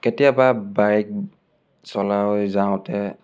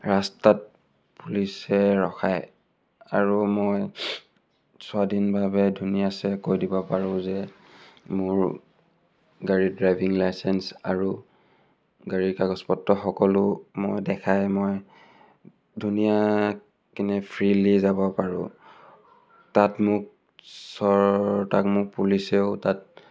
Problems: none marked